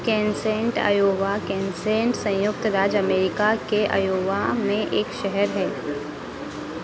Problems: constant background noise